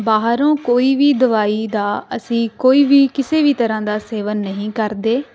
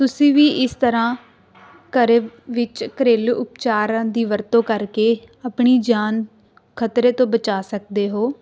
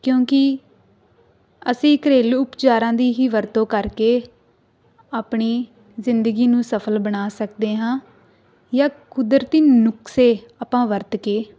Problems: constant background noise